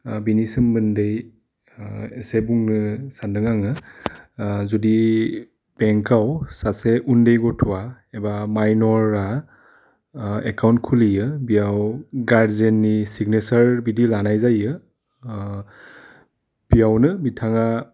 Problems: none marked